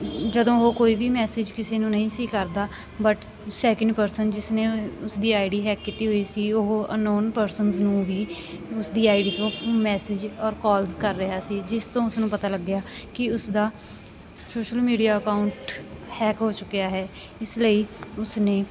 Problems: constant background noise